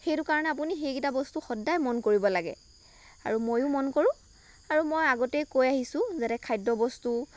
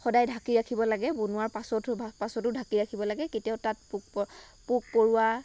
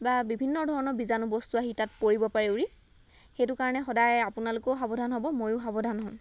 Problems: none marked